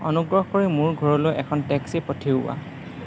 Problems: constant background noise